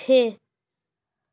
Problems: none marked